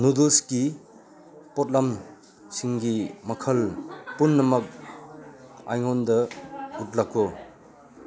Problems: background conversations at intervals